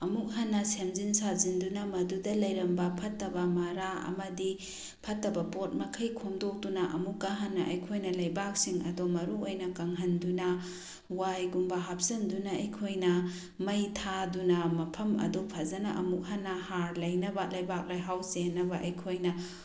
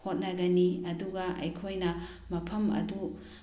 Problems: none marked